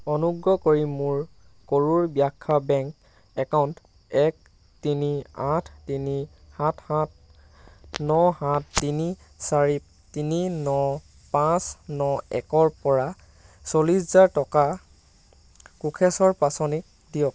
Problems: none marked